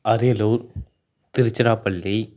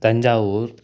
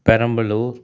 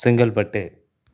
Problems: none marked